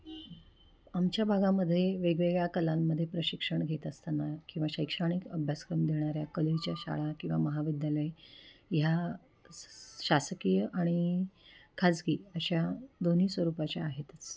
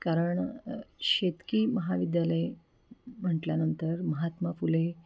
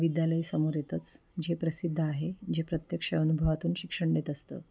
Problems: background sounds at intervals, low volume